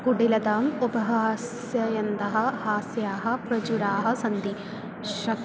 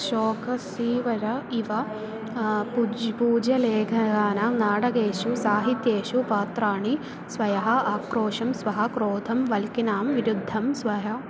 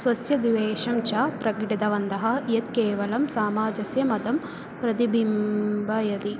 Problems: none marked